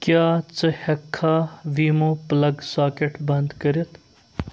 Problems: background sounds at intervals, background conversations at intervals